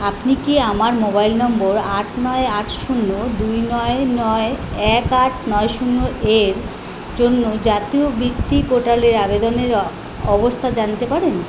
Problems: constant background noise